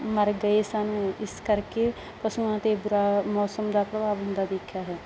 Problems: none marked